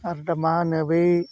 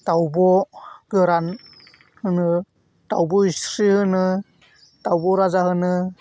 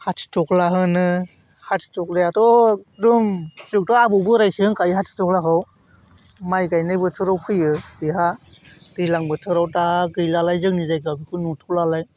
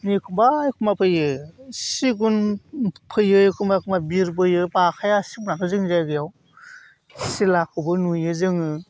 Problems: none marked